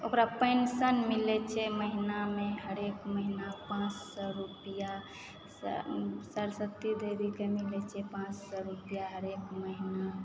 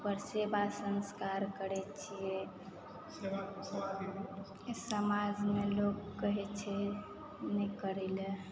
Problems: background sounds at intervals, background conversations at intervals